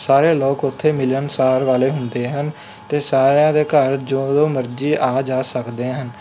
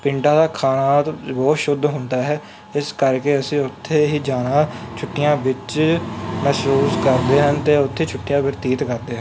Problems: none marked